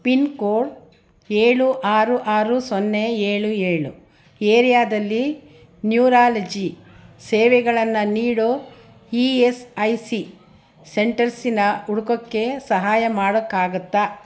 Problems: none marked